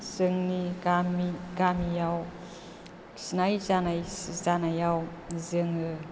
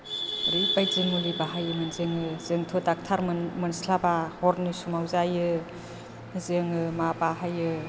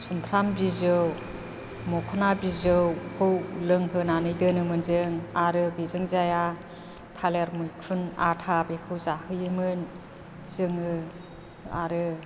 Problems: low volume